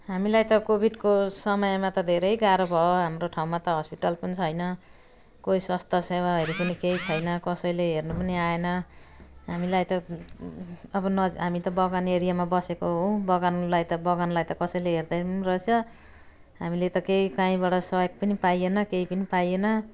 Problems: none marked